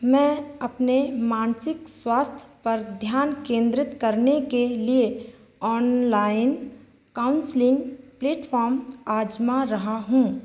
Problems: constant background noise